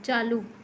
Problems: none marked